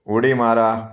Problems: background sounds at intervals, background conversations at intervals